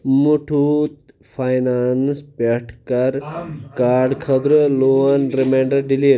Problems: constant background noise